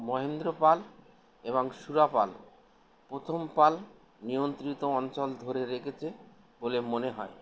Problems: constant background noise